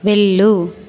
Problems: constant background noise